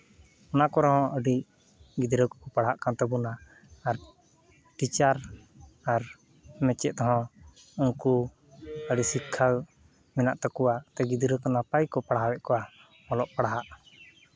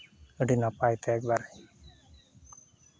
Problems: background sounds at intervals